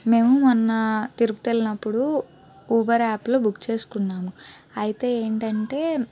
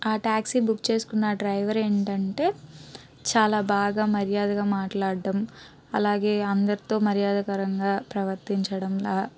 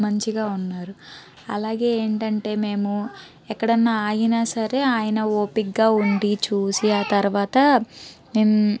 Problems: background sounds at intervals, background conversations at intervals